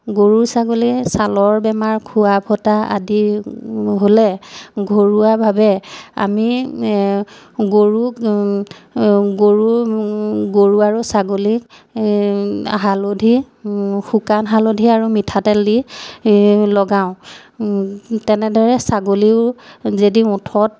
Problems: none marked